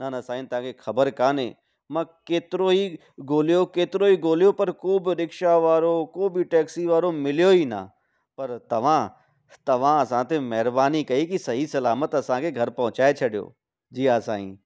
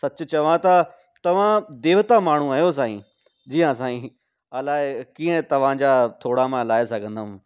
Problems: none marked